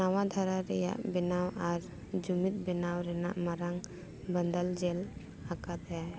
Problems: background sounds at intervals, background conversations at intervals